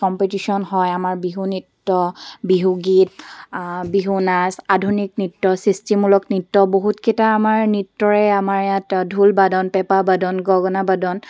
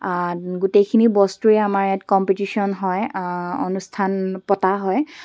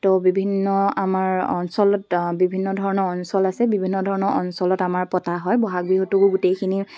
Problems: background sounds at intervals